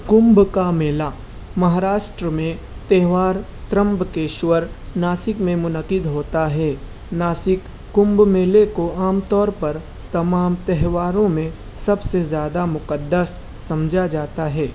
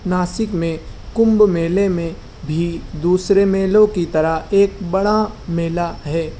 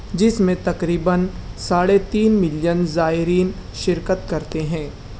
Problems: none marked